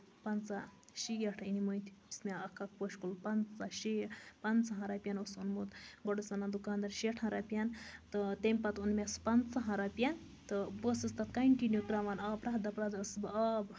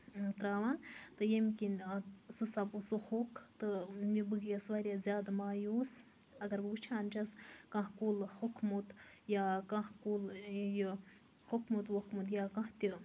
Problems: constant background noise